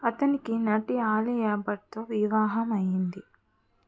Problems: none marked